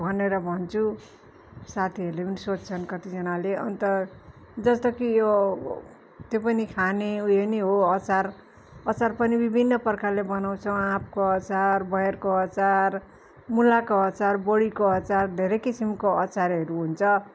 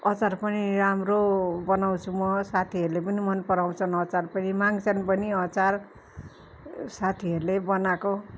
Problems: constant background noise, continuous background conversations